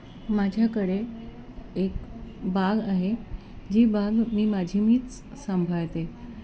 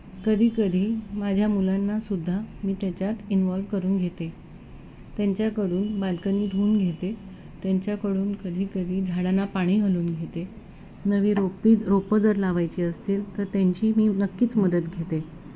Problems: constant background noise, continuous background conversations